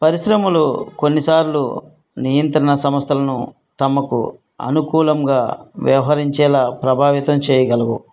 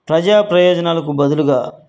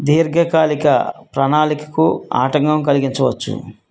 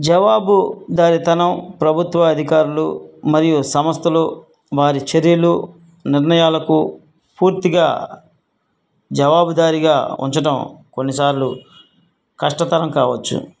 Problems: none marked